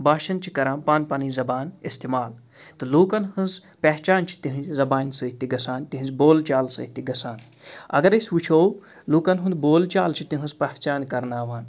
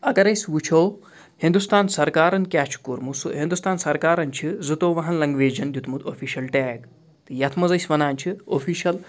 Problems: background sounds at intervals